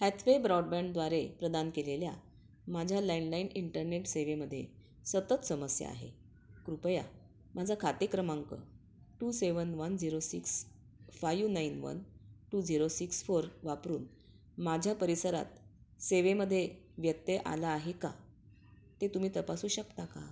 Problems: constant background noise